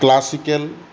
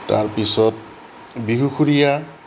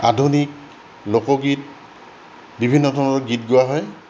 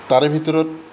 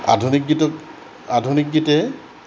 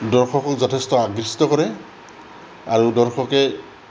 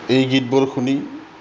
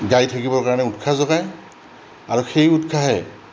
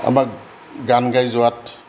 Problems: background sounds at intervals